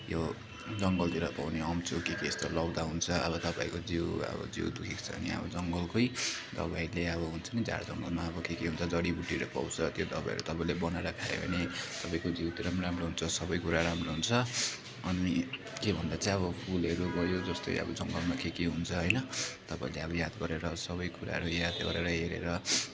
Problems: constant background noise